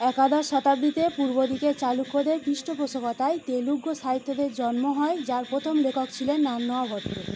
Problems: none marked